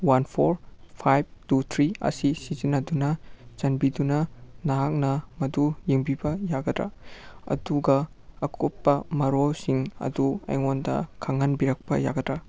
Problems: none marked